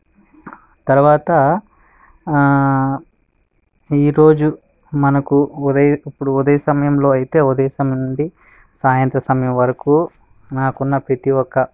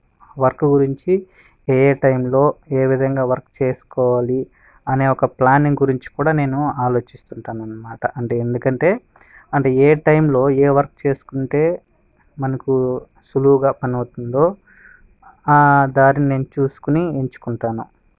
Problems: background sounds at intervals